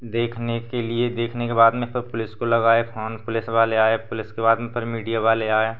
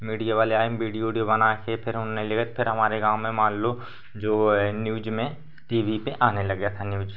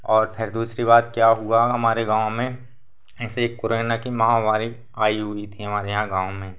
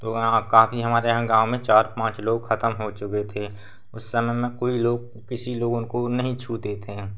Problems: none marked